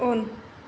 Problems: none marked